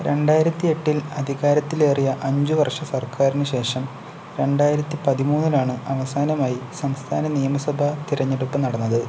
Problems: constant background noise